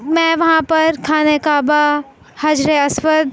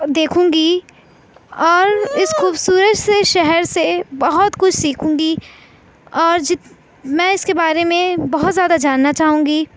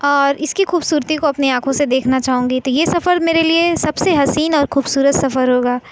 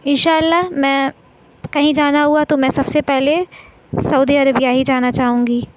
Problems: none marked